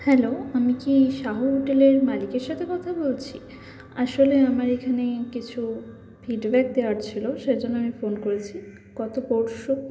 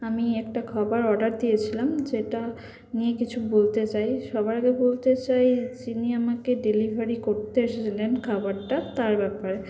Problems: none marked